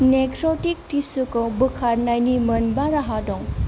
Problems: none marked